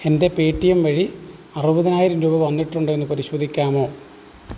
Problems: none marked